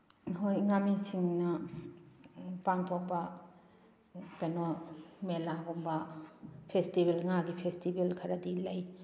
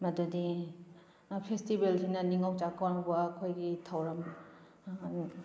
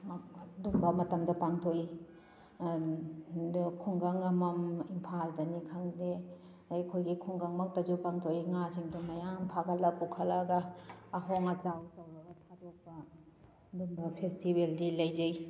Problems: background sounds at intervals